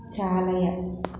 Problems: none marked